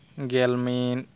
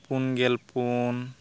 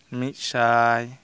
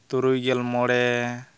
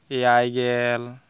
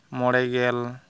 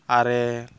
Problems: background sounds at intervals